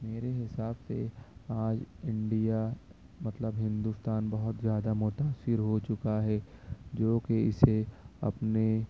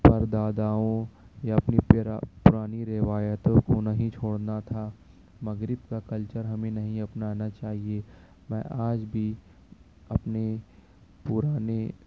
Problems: constant background noise